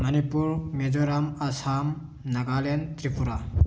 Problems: background sounds at intervals